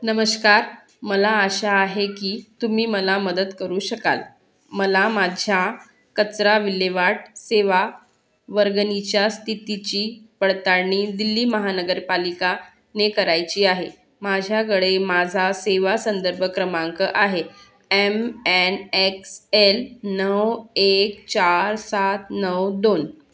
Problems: constant background noise, background conversations at intervals